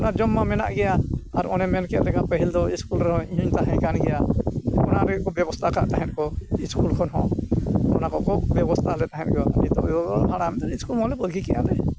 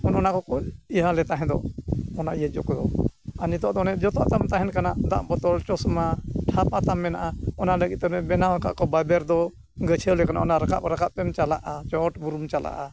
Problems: constant background noise